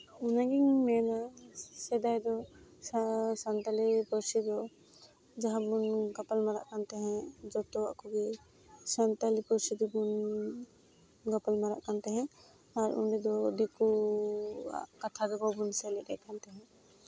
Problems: background sounds at intervals, low volume